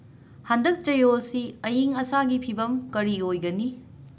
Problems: none marked